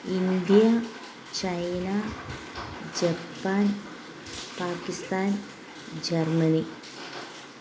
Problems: constant background noise